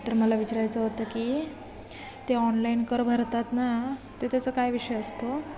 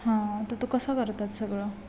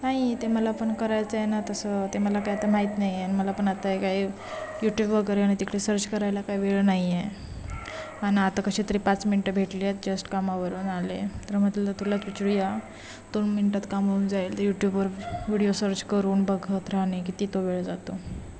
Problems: constant background noise, continuous background conversations